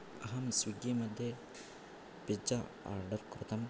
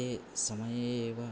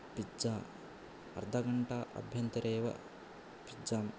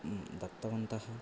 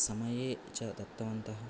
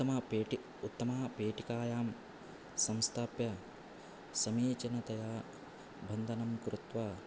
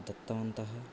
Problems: background sounds at intervals